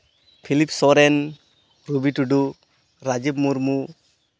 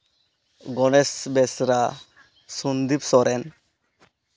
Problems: none marked